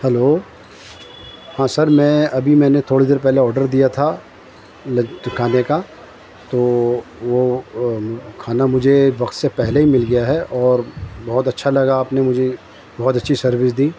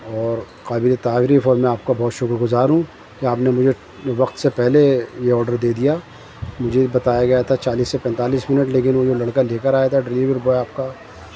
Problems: constant background noise